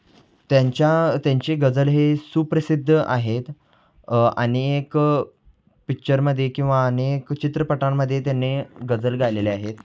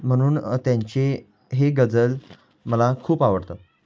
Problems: none marked